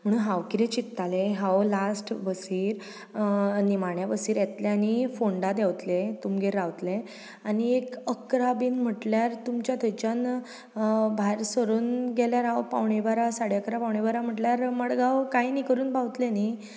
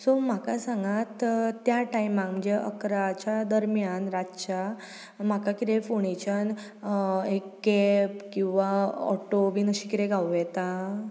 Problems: none marked